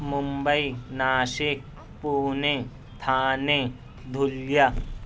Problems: none marked